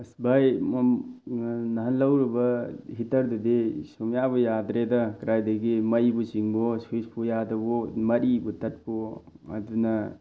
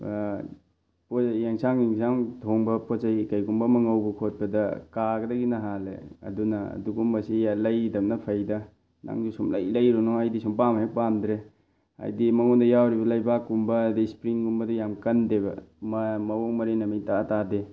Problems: none marked